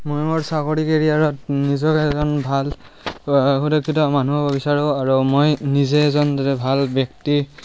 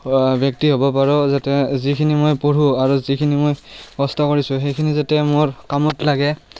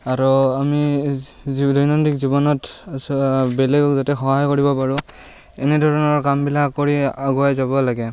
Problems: background sounds at intervals